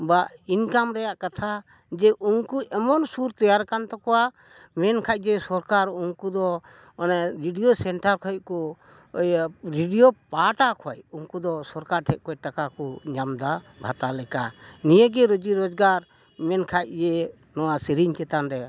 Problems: none marked